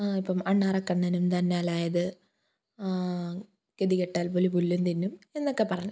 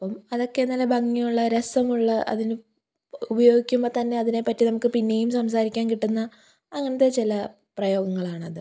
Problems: none marked